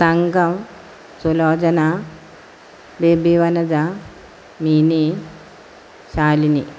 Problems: constant background noise